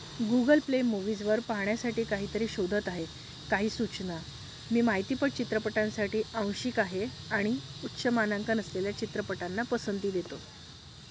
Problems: constant background noise